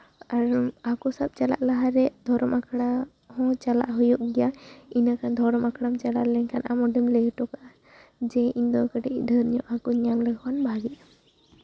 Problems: none marked